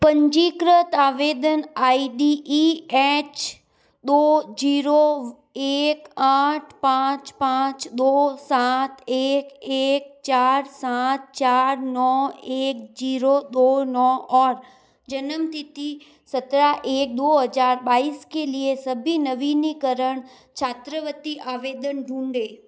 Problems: none marked